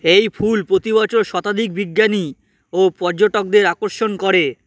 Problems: constant background noise